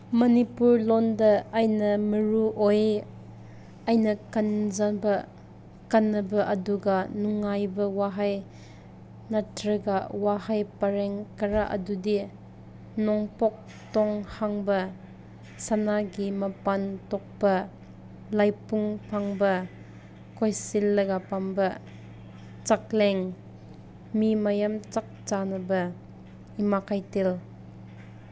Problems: none marked